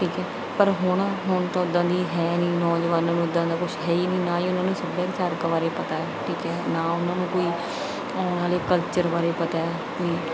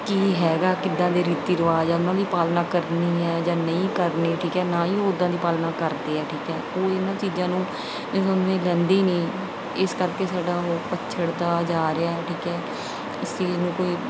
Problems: background sounds at intervals